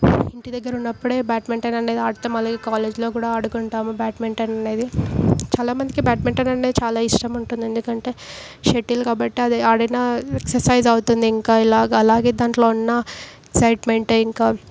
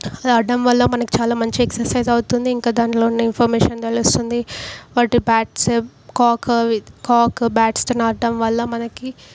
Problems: background sounds at intervals